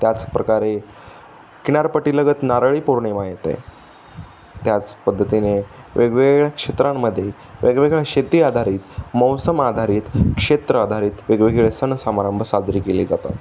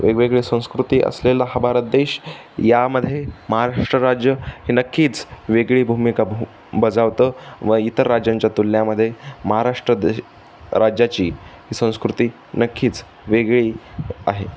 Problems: none marked